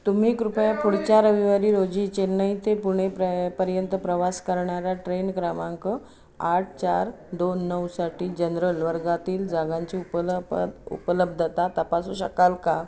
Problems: background sounds at intervals, continuous background conversations